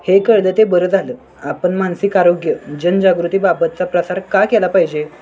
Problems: constant background noise, background conversations at intervals